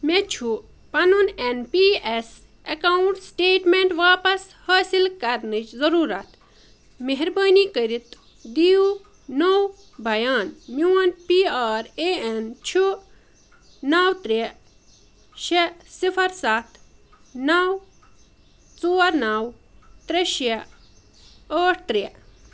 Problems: none marked